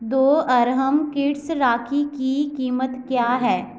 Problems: constant background noise